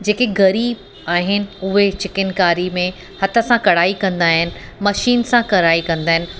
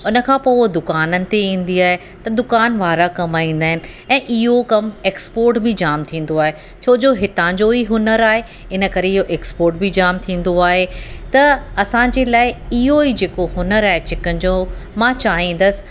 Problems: constant background noise